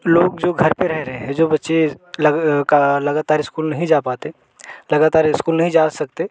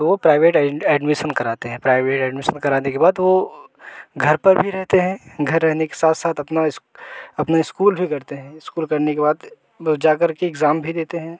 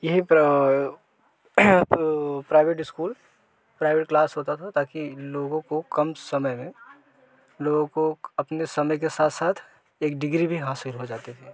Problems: constant background noise